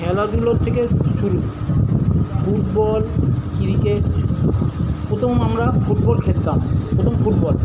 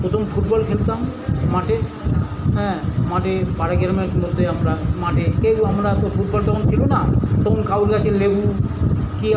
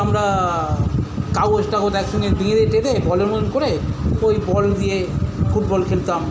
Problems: constant background noise